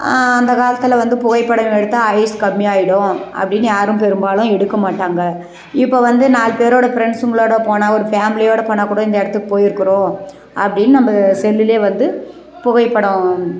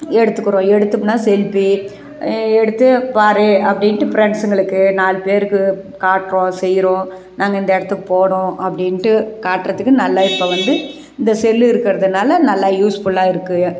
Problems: none marked